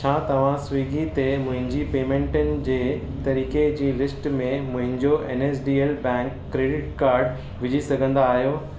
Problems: constant background noise